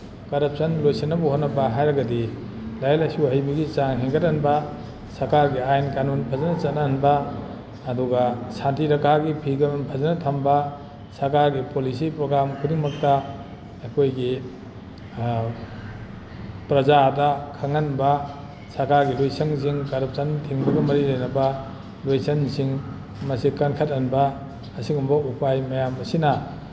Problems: background sounds at intervals